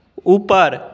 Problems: none marked